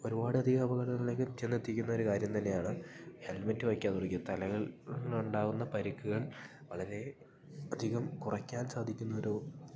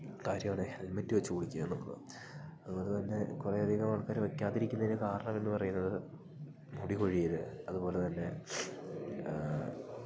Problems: low volume